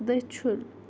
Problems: none marked